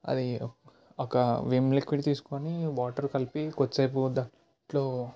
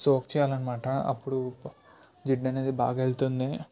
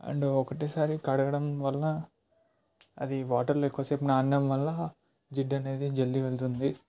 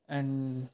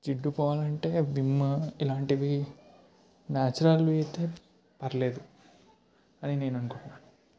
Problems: none marked